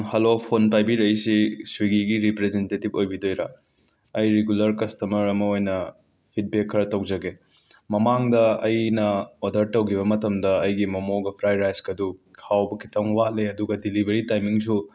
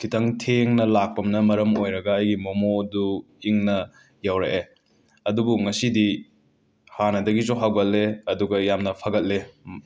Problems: background sounds at intervals